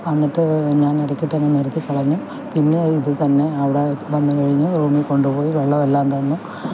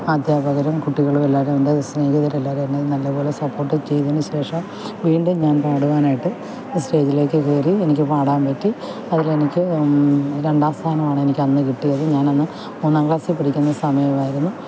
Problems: constant background noise, low volume